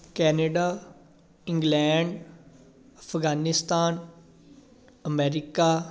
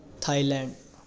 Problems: continuous background conversations